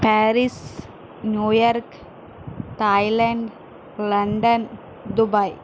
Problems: constant background noise